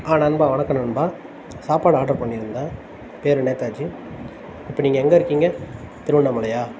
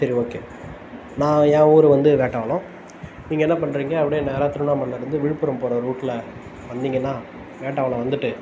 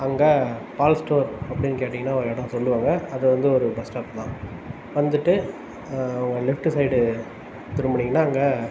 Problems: constant background noise